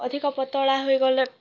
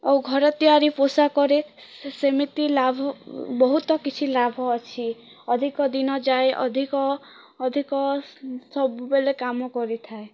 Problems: constant background noise